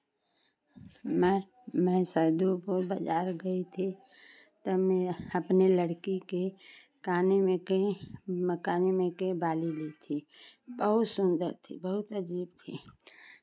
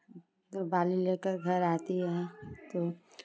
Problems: background sounds at intervals, background conversations at intervals